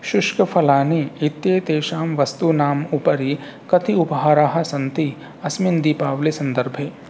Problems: constant background noise